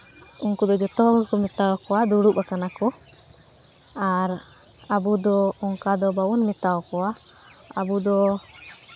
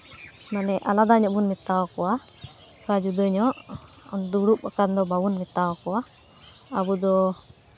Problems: constant background noise